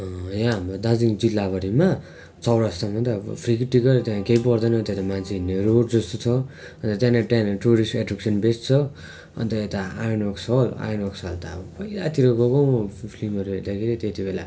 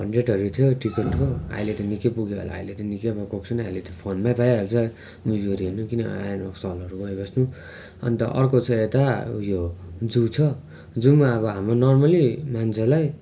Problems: none marked